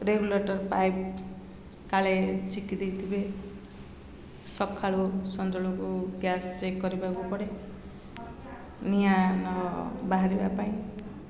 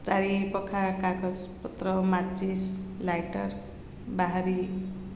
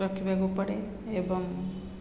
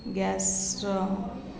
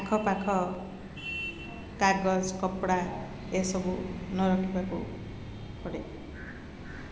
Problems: constant background noise